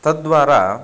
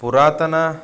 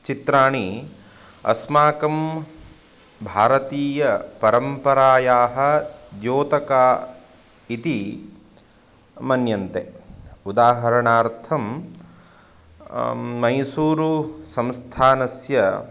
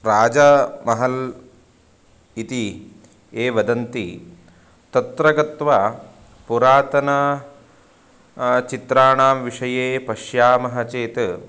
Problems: constant background noise